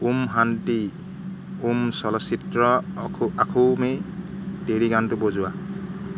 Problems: constant background noise